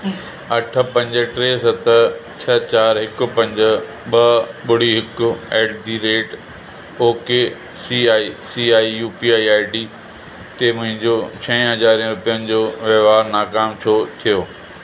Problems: constant background noise